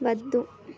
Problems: background conversations at intervals